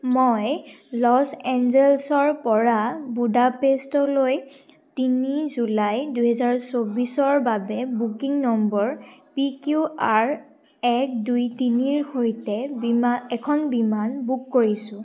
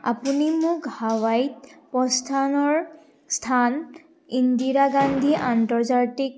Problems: none marked